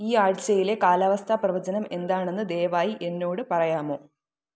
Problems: none marked